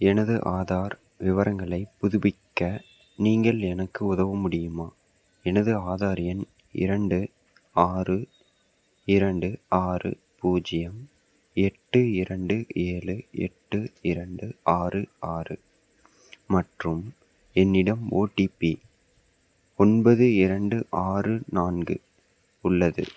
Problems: background sounds at intervals